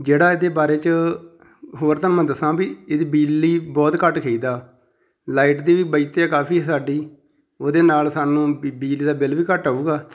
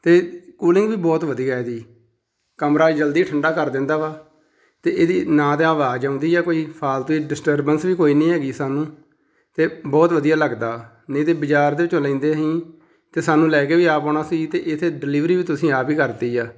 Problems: none marked